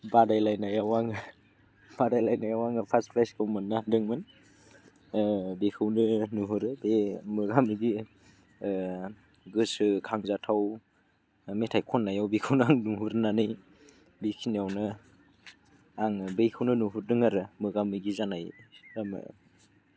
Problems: low volume